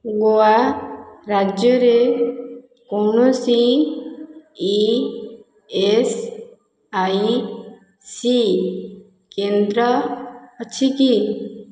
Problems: none marked